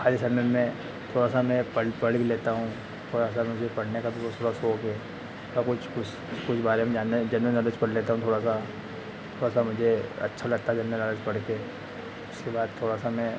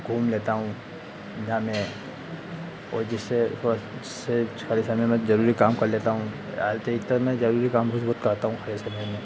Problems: constant background noise